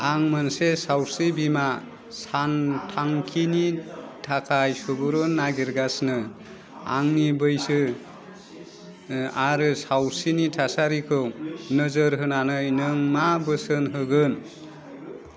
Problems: none marked